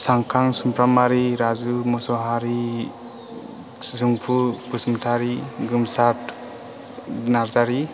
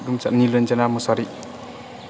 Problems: constant background noise